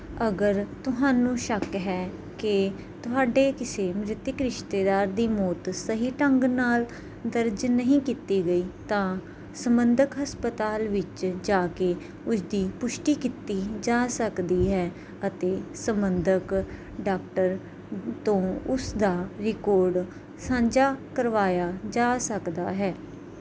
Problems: background sounds at intervals